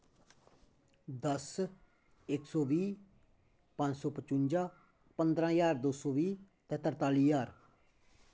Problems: low volume